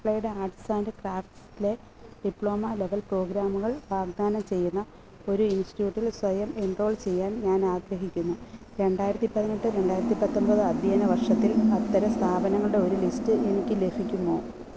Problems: constant background noise